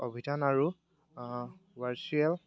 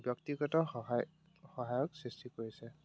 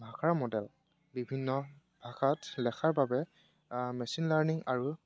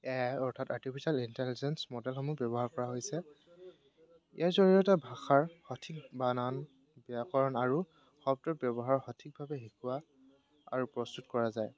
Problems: background sounds at intervals